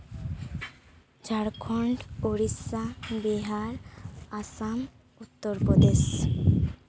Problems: background sounds at intervals